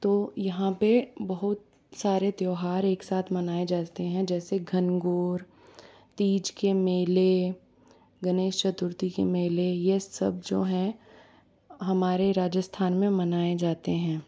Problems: none marked